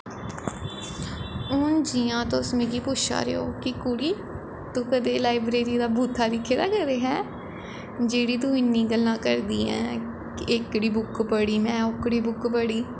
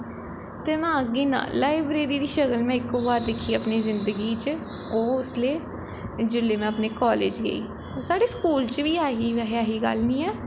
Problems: echo